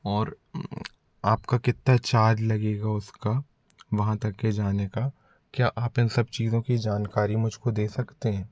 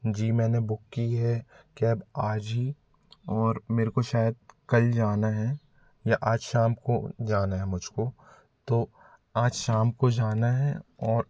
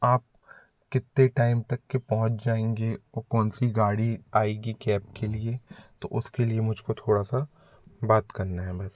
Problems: none marked